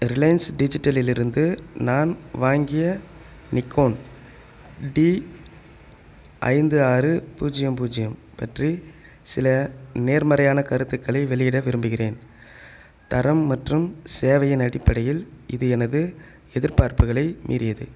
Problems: none marked